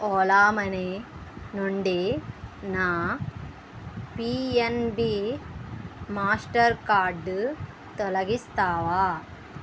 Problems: constant background noise